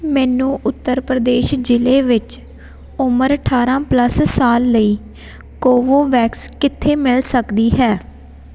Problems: background sounds at intervals